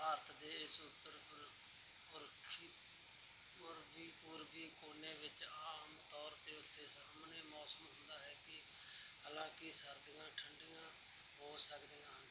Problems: background sounds at intervals